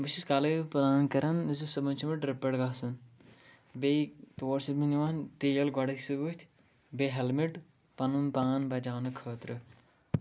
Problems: background sounds at intervals